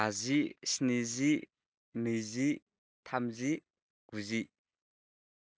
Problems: none marked